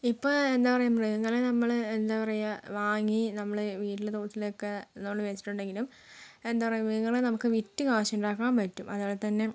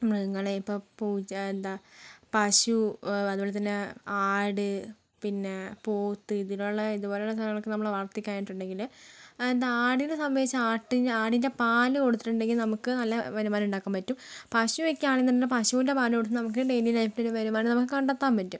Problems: low volume